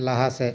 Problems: constant background noise